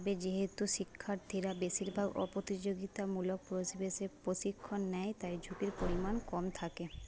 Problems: low volume